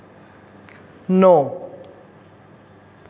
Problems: constant background noise